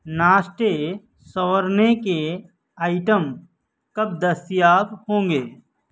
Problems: none marked